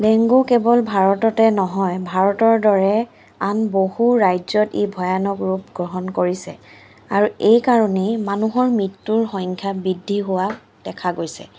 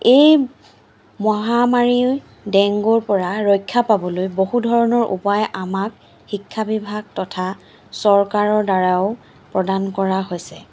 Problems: constant background noise